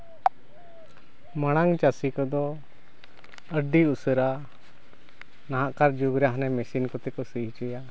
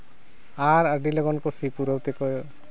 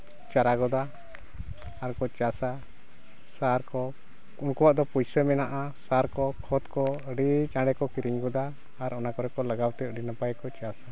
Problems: constant background noise